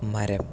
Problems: none marked